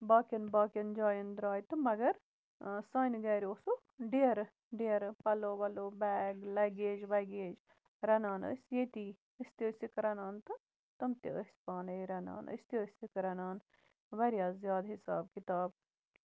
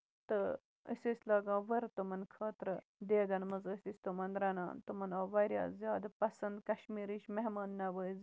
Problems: none marked